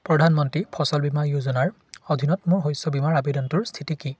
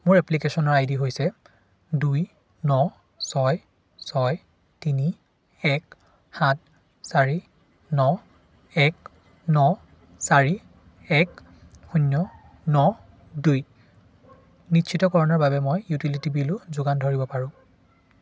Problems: none marked